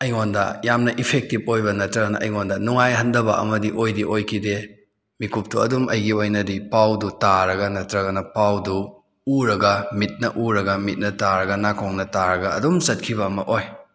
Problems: none marked